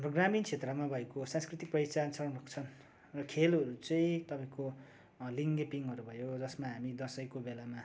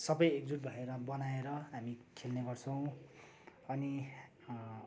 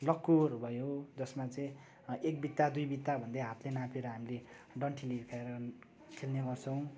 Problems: none marked